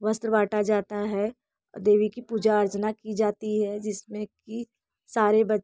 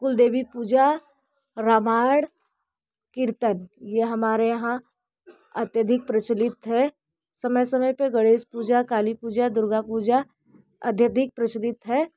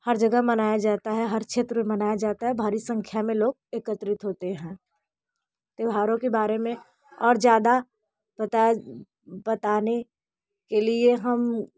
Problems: none marked